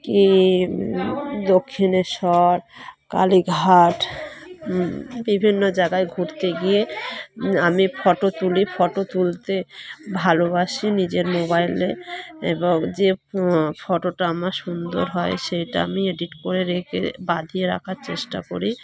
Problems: continuous background conversations